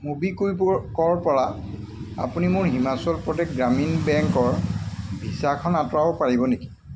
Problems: constant background noise